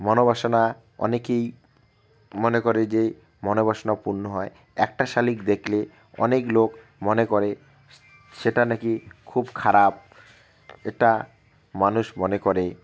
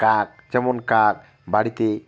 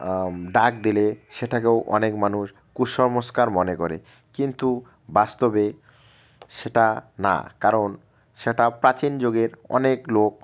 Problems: none marked